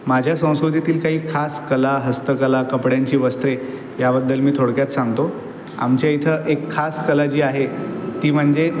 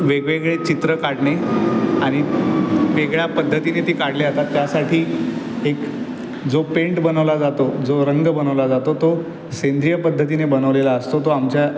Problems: constant background noise, background conversations at intervals